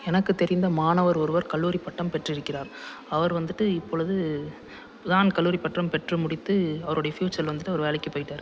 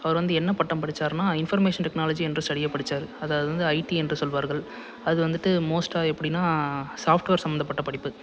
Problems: none marked